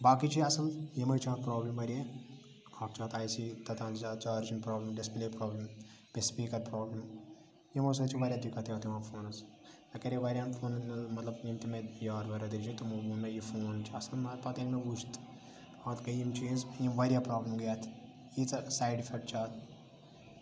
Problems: constant background noise, low volume